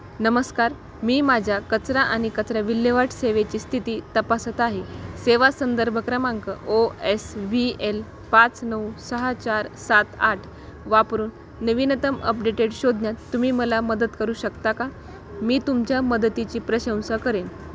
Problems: none marked